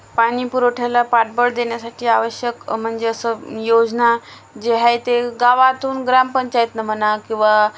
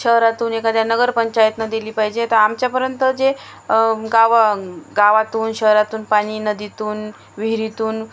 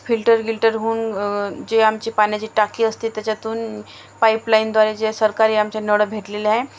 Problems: background sounds at intervals